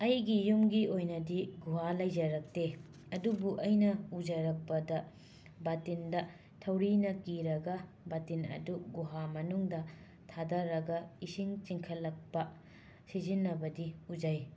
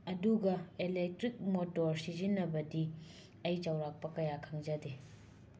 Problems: low volume